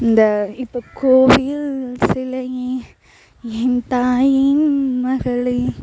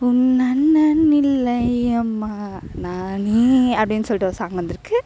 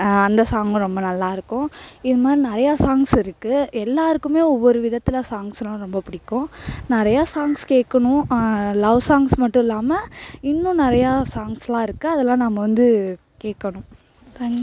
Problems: constant background noise